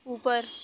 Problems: constant background noise